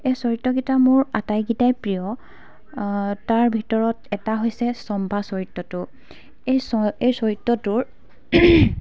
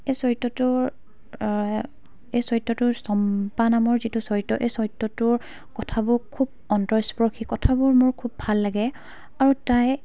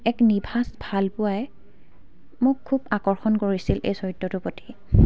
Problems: background sounds at intervals